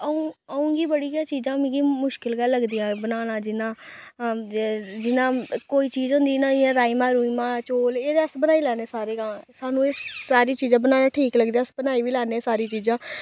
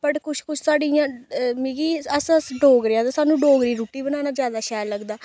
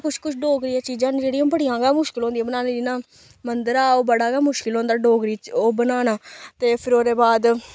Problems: none marked